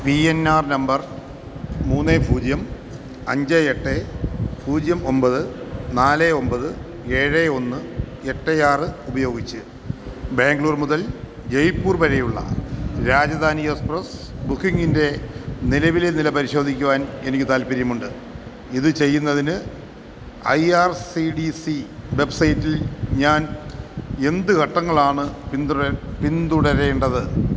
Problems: constant background noise